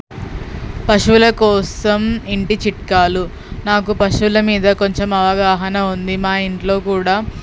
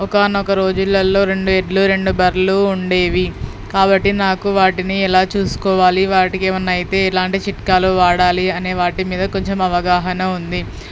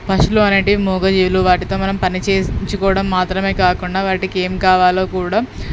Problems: background sounds at intervals